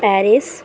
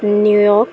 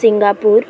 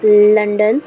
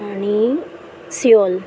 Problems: constant background noise, continuous background conversations